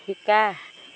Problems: constant background noise